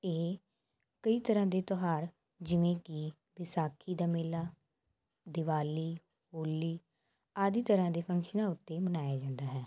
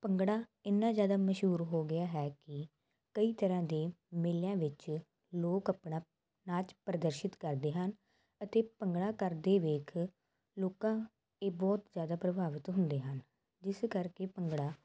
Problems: constant background noise